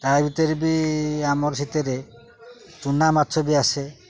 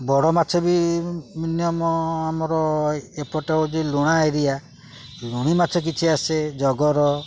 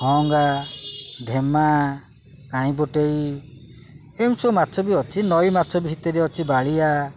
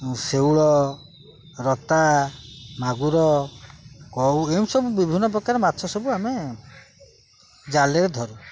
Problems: none marked